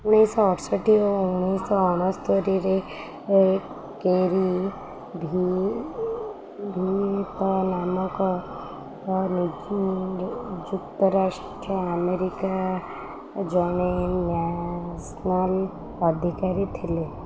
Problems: none marked